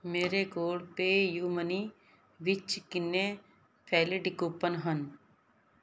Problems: background sounds at intervals